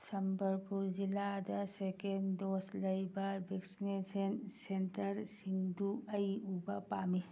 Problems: none marked